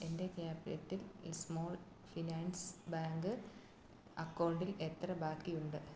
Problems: low volume